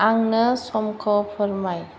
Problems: none marked